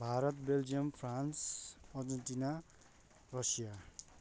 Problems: none marked